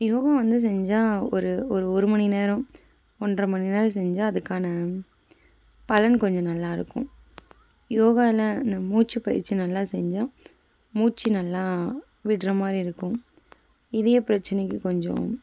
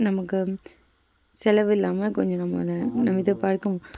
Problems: background sounds at intervals